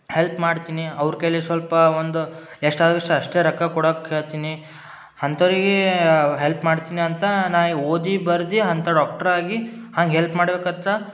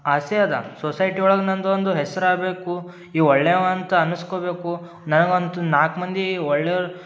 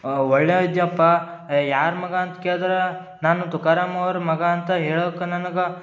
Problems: none marked